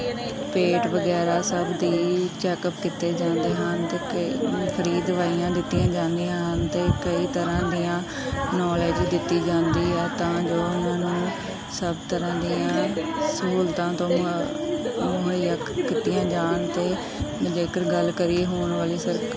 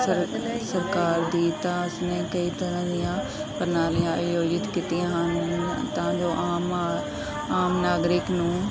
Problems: background sounds at intervals, continuous background conversations